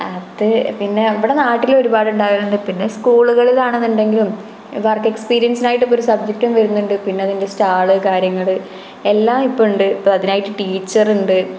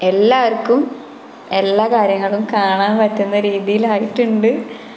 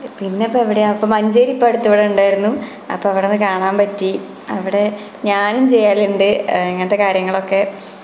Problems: constant background noise